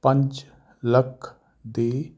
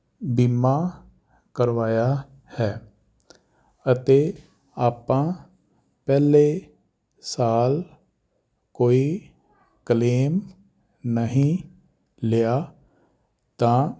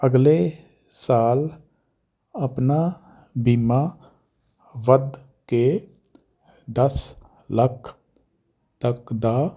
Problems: none marked